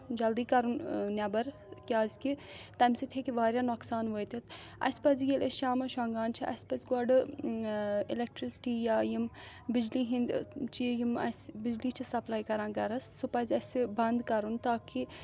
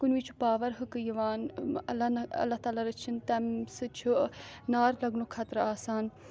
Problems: background sounds at intervals